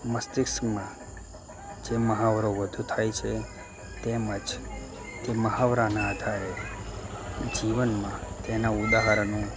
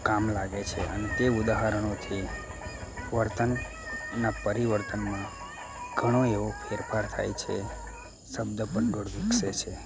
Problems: constant background noise